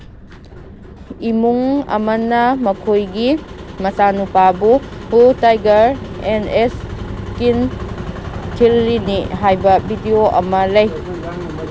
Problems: background sounds at intervals, background conversations at intervals